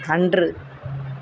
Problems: continuous background conversations